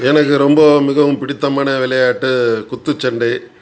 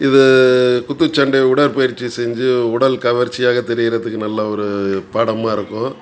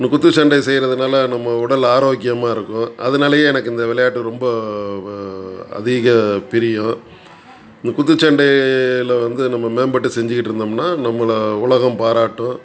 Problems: background sounds at intervals, background conversations at intervals